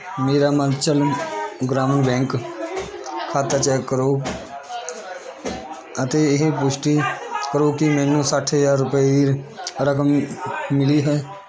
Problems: constant background noise, continuous background conversations